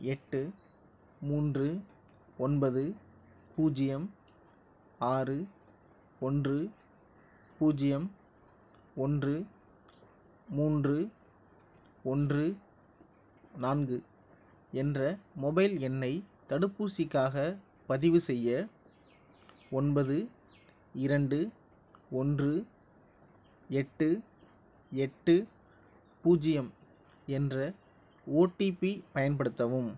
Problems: none marked